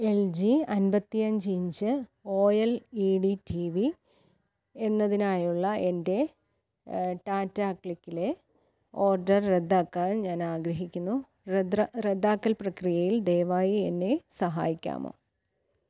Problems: low volume